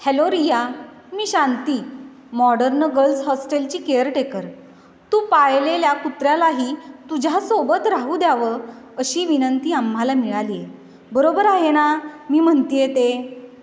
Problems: none marked